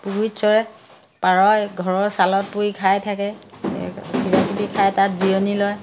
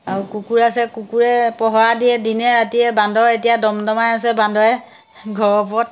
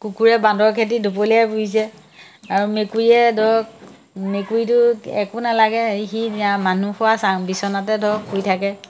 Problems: none marked